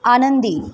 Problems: constant background noise